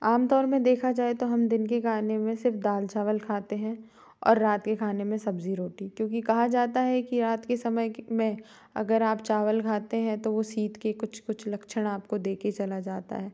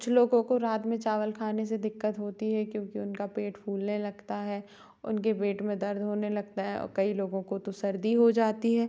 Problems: none marked